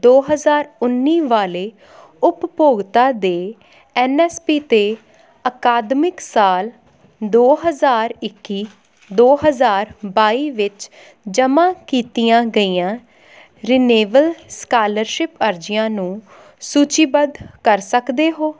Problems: none marked